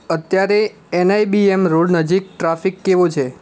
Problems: constant background noise